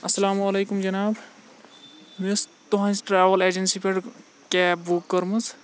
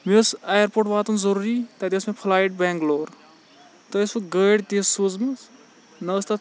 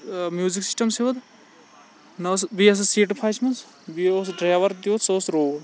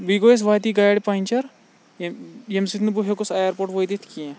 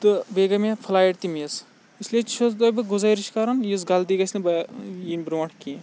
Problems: background sounds at intervals, background conversations at intervals